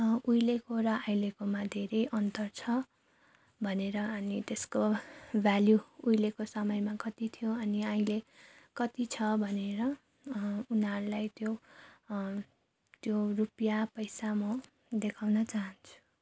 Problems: background sounds at intervals